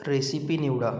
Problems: background sounds at intervals, background conversations at intervals